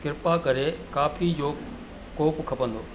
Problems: constant background noise, echo